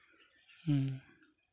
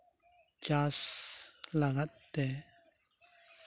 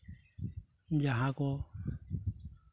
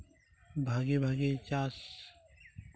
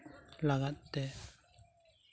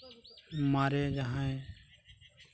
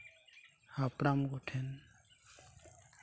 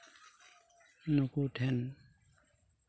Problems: none marked